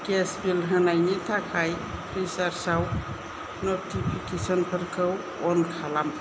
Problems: constant background noise, low volume